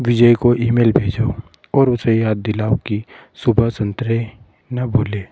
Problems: none marked